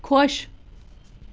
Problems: background sounds at intervals